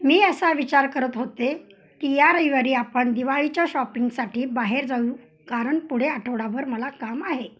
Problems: constant background noise